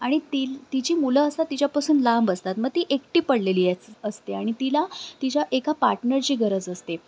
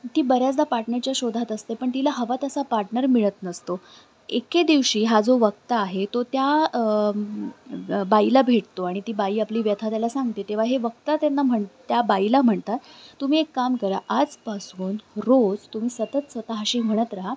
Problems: constant background noise, background conversations at intervals